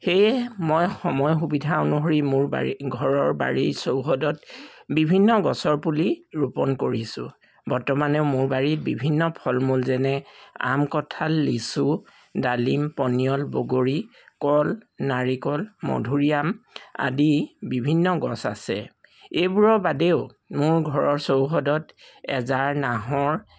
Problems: background sounds at intervals